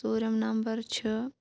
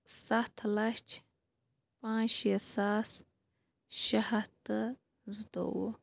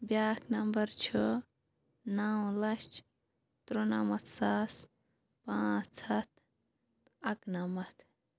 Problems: background sounds at intervals